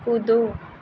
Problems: none marked